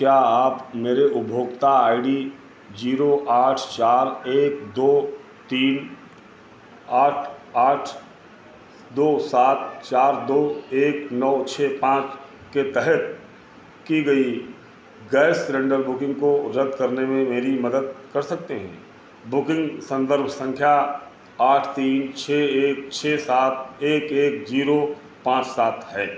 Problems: constant background noise